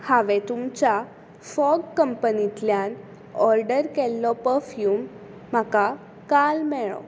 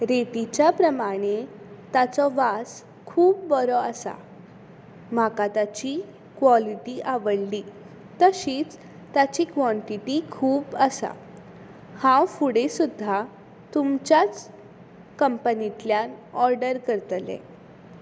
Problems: constant background noise